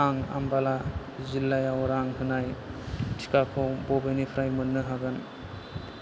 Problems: low volume